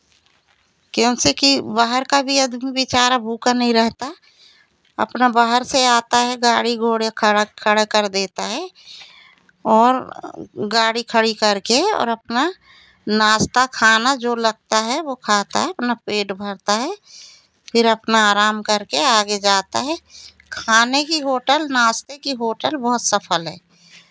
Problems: constant background noise, background conversations at intervals